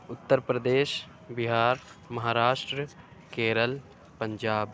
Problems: none marked